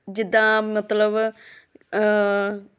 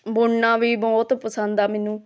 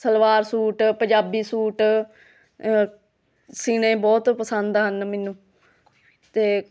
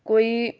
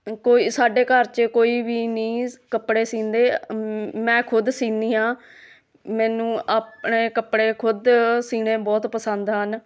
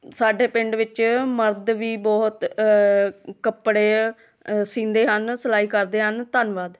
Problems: background conversations at intervals